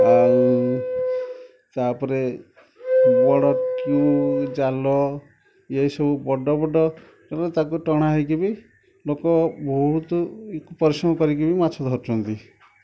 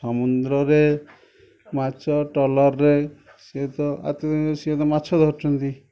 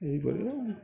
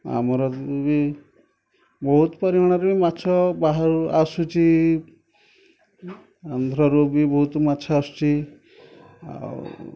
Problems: background sounds at intervals